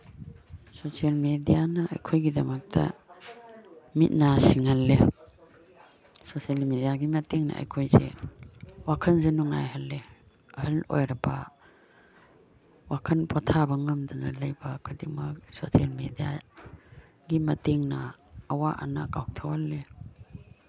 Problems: background conversations at intervals